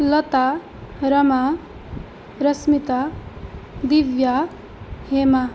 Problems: constant background noise